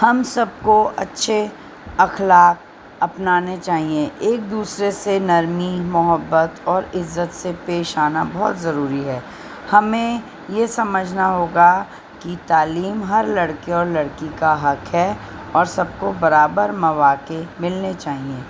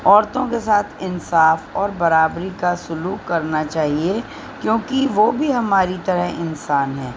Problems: constant background noise, low volume